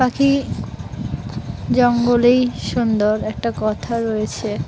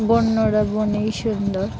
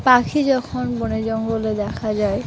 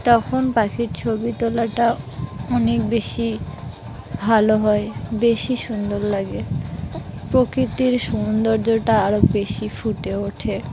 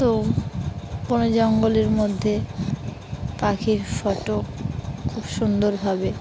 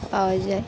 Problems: constant background noise